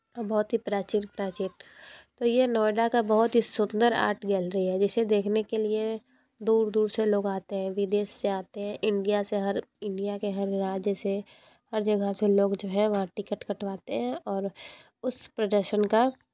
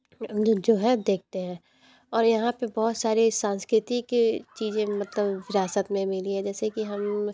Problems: none marked